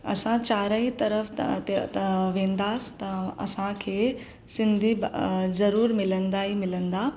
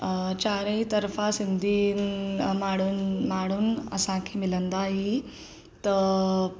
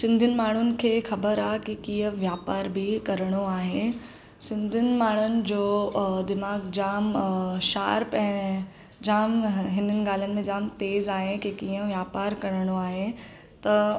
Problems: none marked